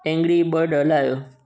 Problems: constant background noise, echo